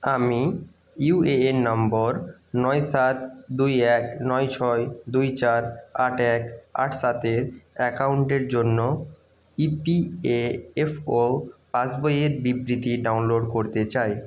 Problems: none marked